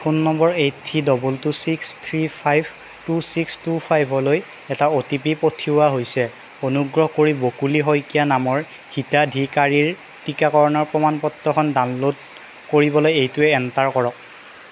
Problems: constant background noise